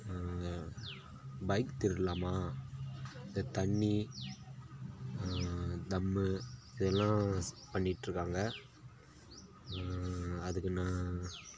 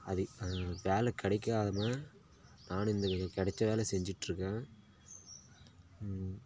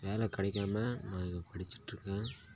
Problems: none marked